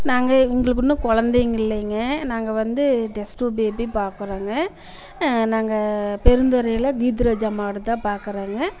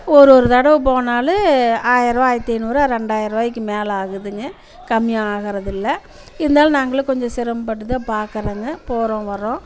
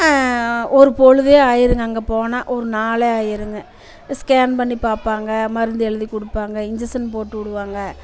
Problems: constant background noise, background conversations at intervals